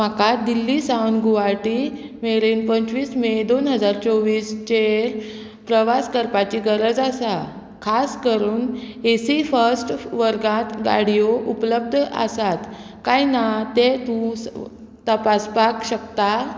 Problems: constant background noise